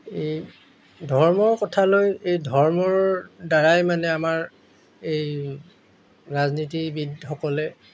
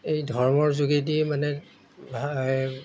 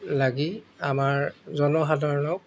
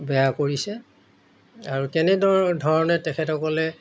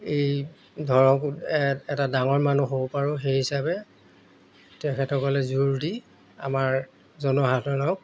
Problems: background sounds at intervals